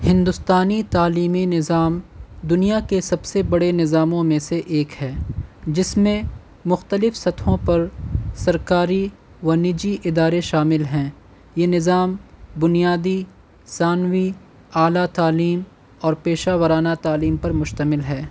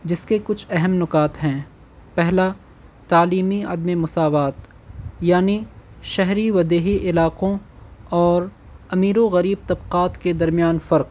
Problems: constant background noise